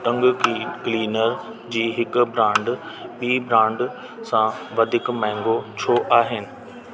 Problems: constant background noise, echo